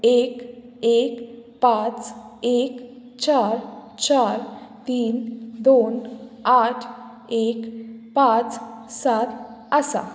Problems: background sounds at intervals